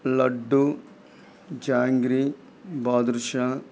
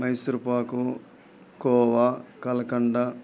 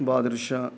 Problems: background sounds at intervals